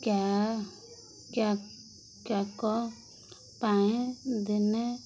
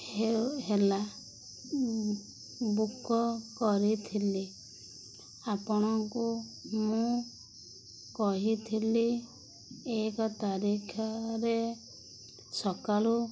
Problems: none marked